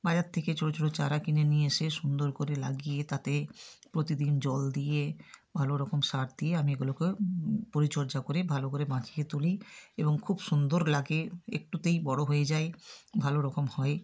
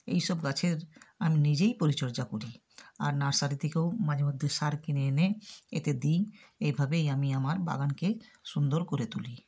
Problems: none marked